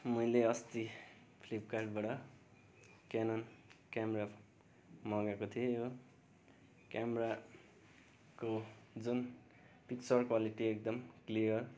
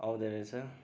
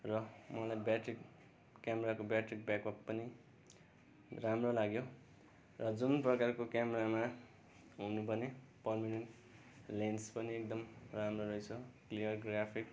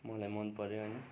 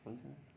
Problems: none marked